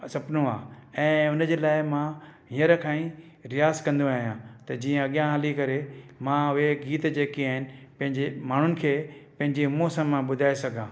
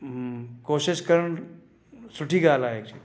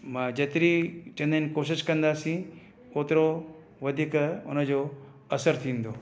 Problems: none marked